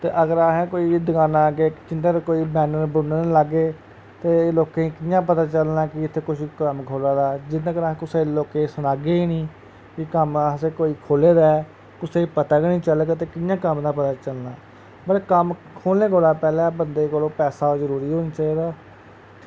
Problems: constant background noise